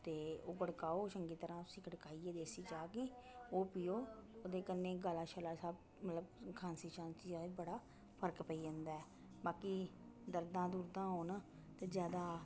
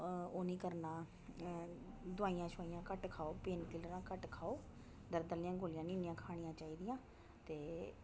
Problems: background sounds at intervals